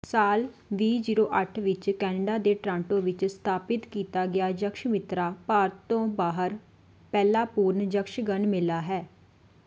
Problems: background sounds at intervals